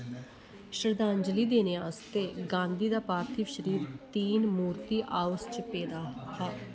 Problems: constant background noise